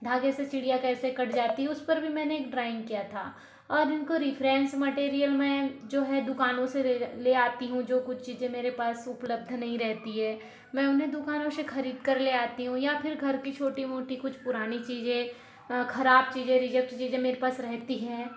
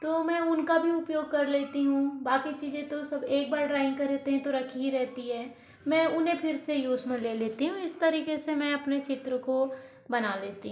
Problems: none marked